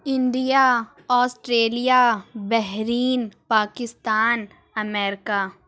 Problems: none marked